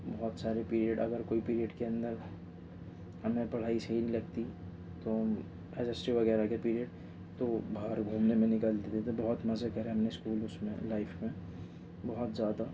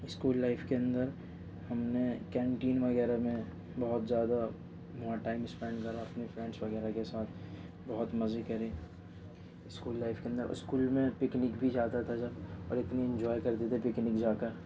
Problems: background sounds at intervals, low volume